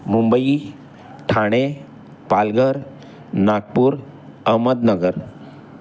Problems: constant background noise, continuous background conversations